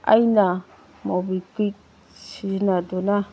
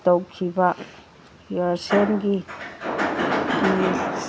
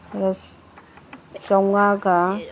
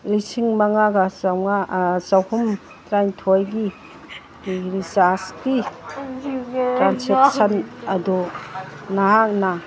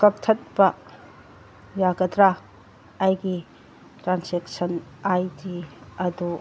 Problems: background sounds at intervals, background conversations at intervals